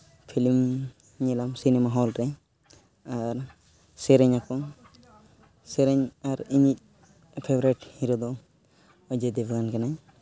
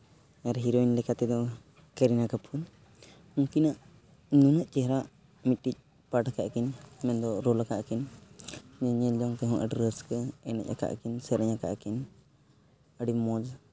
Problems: background sounds at intervals